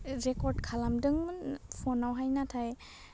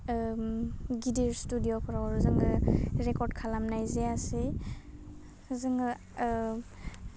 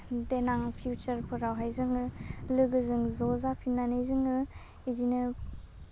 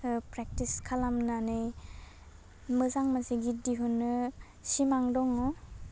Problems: low volume